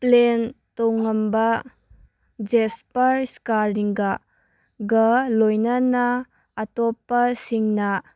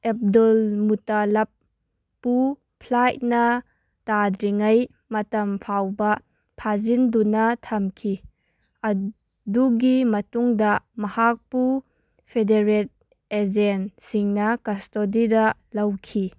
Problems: none marked